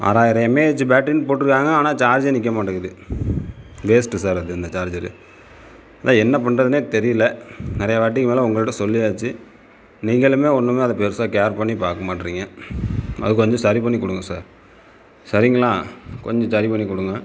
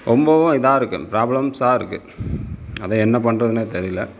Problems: background sounds at intervals